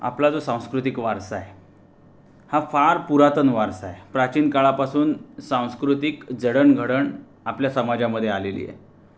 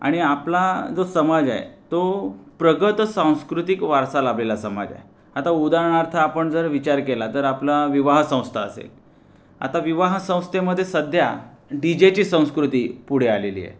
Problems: constant background noise